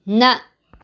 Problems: none marked